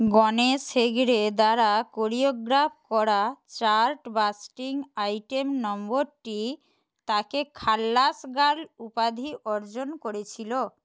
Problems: none marked